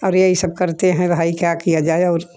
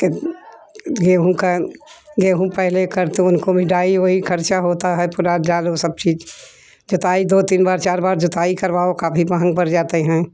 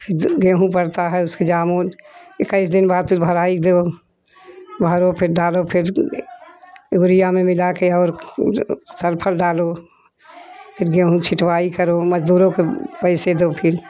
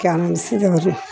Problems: none marked